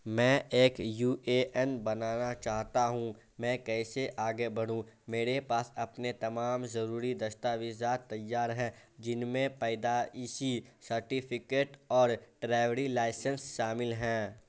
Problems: constant background noise